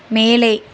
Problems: constant background noise